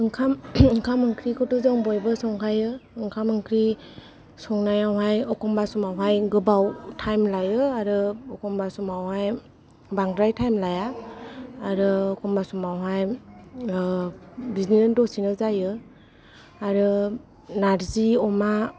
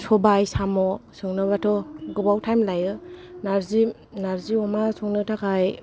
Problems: none marked